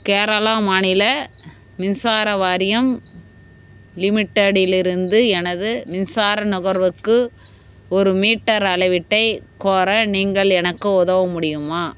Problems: constant background noise